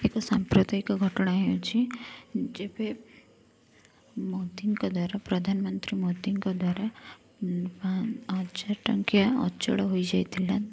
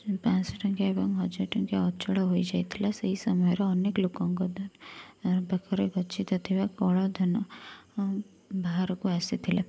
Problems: none marked